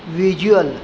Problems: none marked